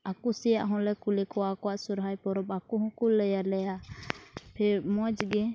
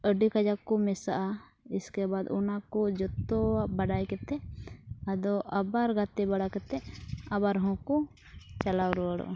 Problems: constant background noise, low volume